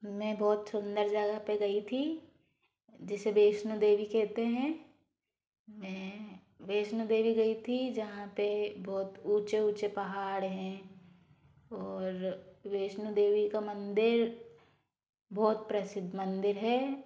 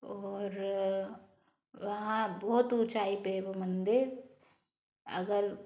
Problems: background sounds at intervals